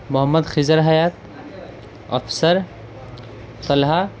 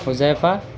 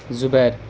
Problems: constant background noise, background conversations at intervals